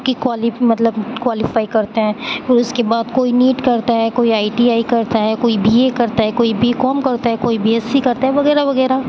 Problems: constant background noise